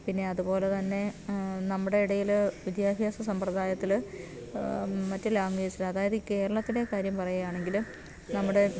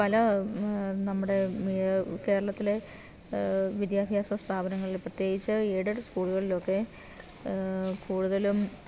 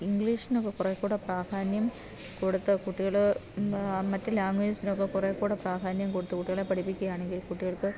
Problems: background sounds at intervals